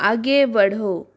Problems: constant background noise